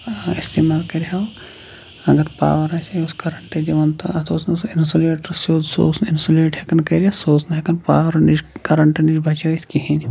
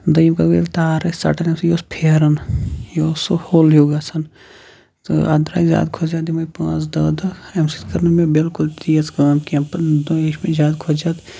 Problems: none marked